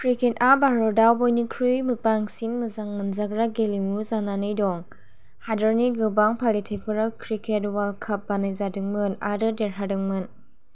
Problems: none marked